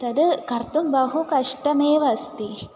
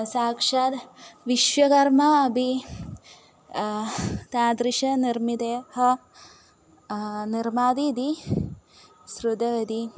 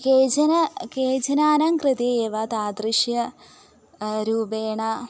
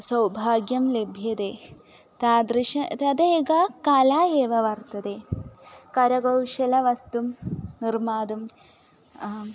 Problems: none marked